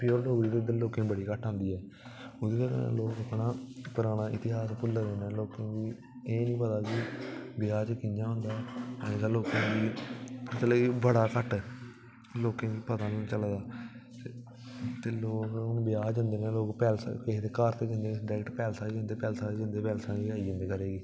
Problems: constant background noise